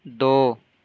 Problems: constant background noise